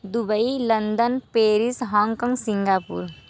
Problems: none marked